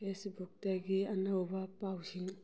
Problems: none marked